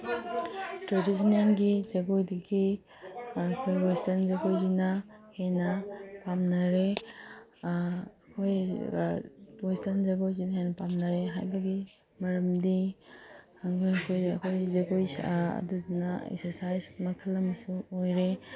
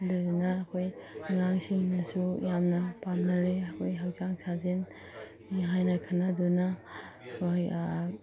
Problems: background sounds at intervals